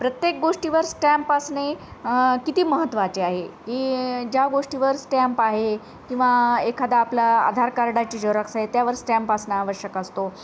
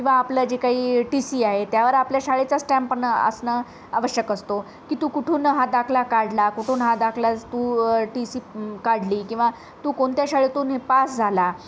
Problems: none marked